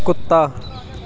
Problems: continuous background conversations